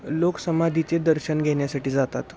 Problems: none marked